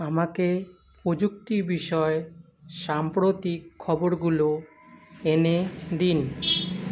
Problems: constant background noise